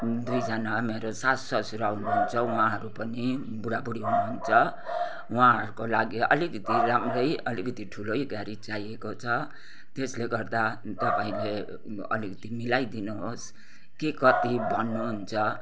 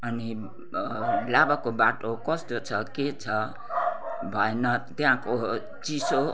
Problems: constant background noise